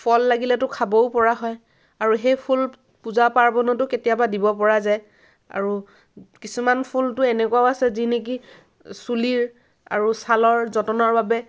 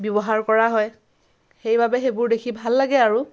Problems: none marked